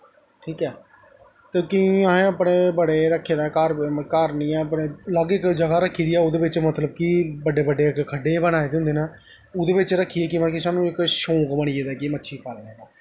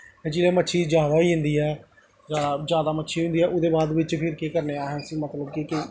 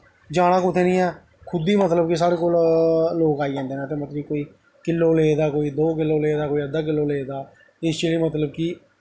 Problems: echo